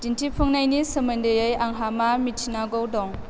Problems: constant background noise